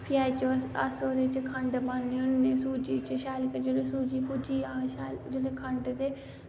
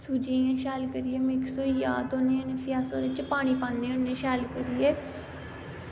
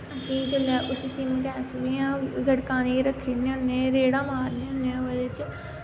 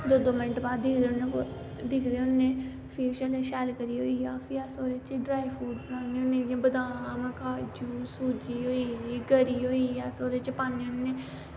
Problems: constant background noise